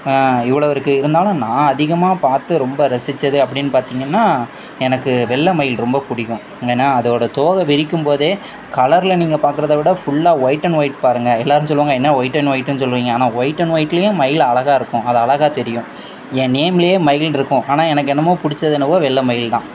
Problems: constant background noise